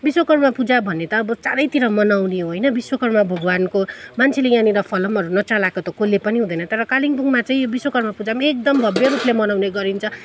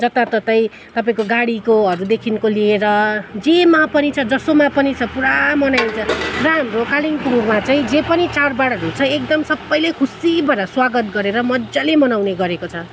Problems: background sounds at intervals